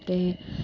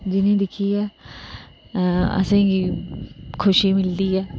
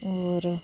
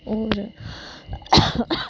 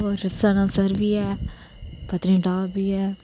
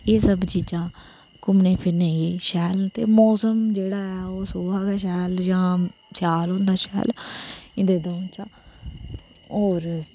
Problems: none marked